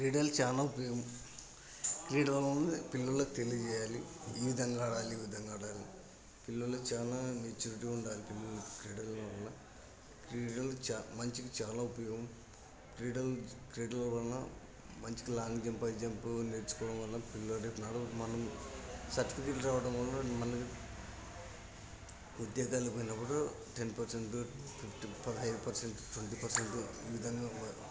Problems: constant background noise, continuous background conversations